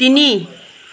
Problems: none marked